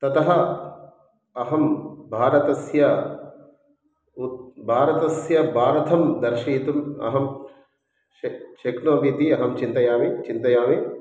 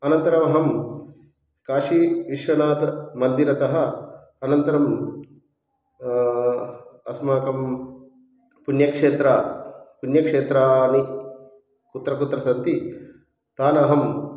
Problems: background conversations at intervals